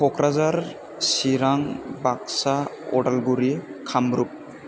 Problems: constant background noise